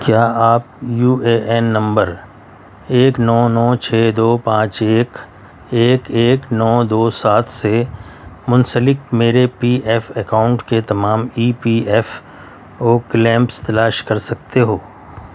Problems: constant background noise